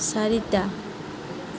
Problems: constant background noise